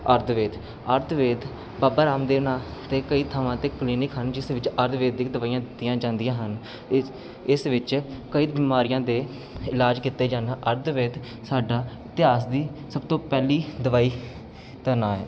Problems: constant background noise